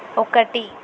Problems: constant background noise